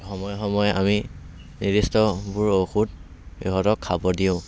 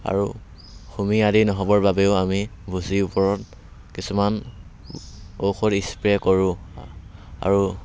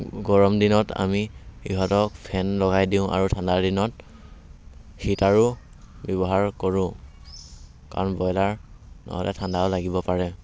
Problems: background sounds at intervals